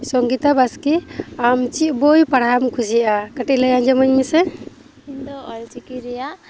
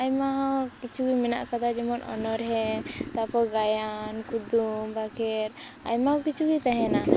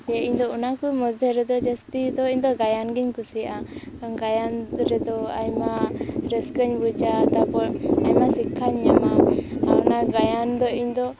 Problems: constant background noise